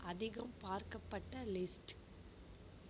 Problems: low volume